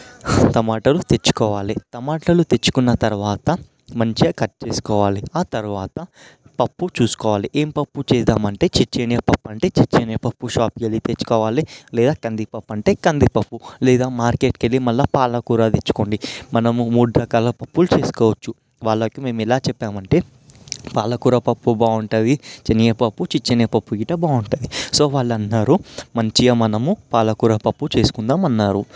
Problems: background sounds at intervals